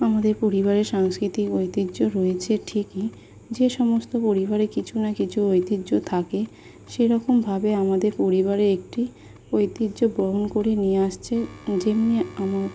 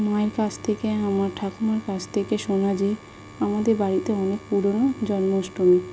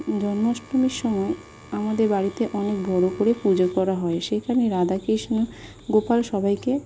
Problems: constant background noise